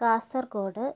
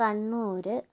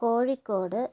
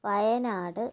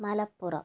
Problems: low volume